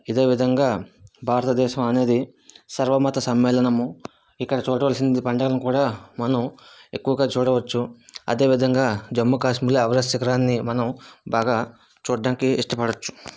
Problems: none marked